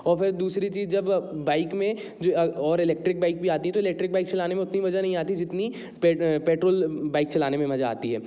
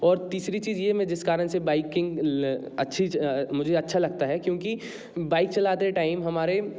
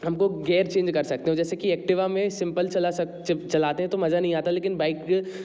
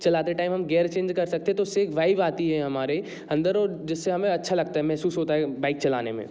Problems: constant background noise